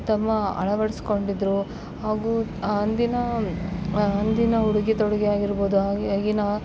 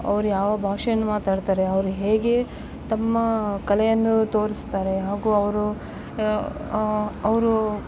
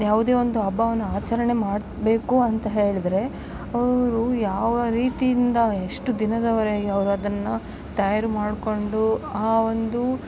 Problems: background sounds at intervals